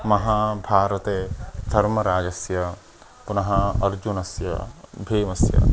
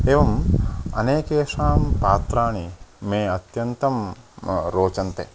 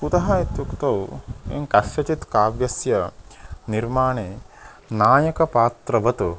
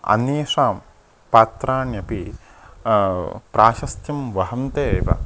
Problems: constant background noise